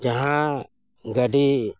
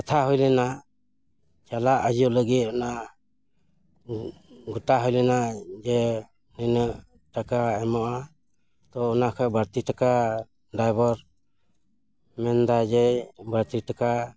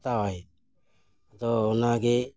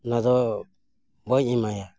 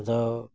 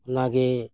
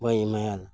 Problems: none marked